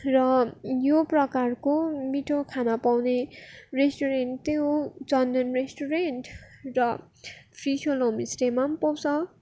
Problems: background sounds at intervals